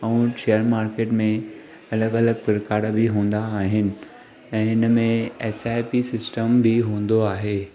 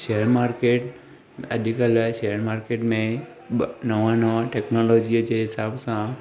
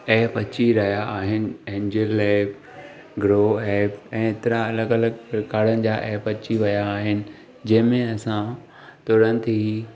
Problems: constant background noise